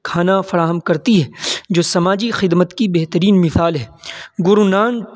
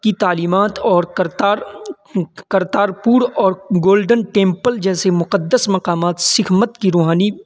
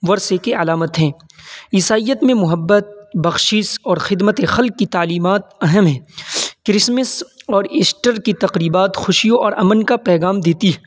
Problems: constant background noise